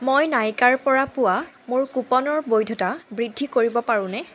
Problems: background sounds at intervals